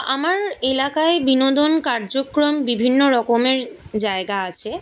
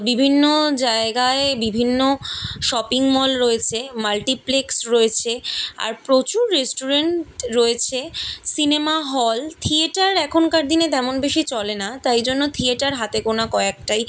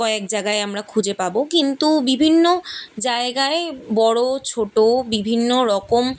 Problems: none marked